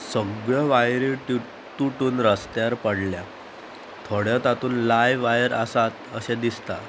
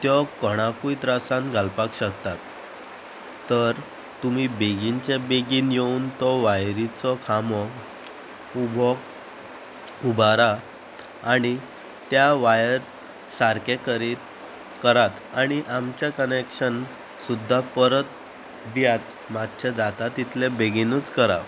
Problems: constant background noise